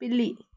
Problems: none marked